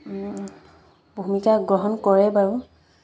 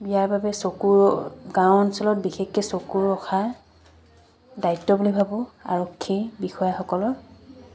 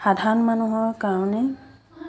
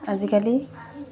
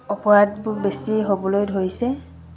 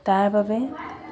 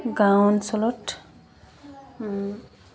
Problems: background sounds at intervals